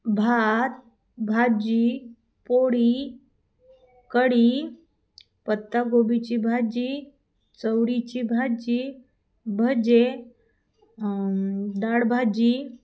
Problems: background sounds at intervals